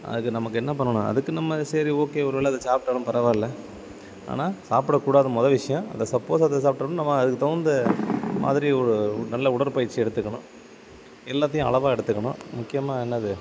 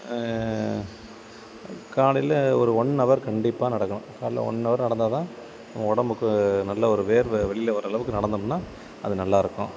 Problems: constant background noise